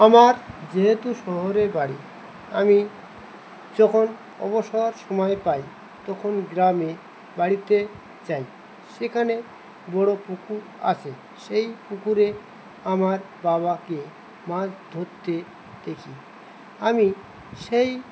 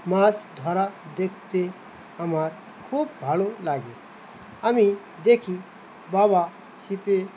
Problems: constant background noise